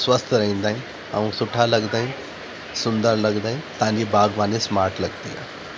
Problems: constant background noise